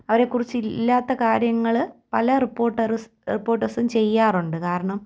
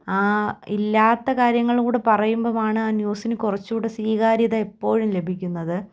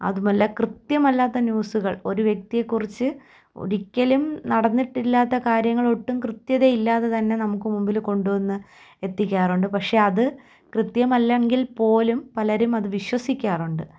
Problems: none marked